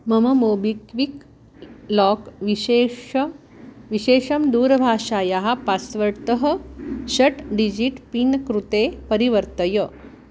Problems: none marked